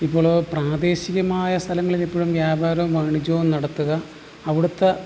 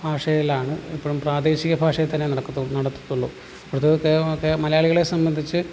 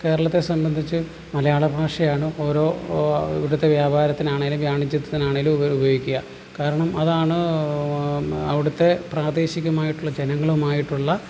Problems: low volume